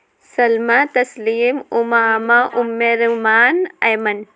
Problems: background conversations at intervals